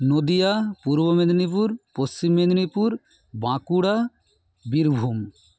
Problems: constant background noise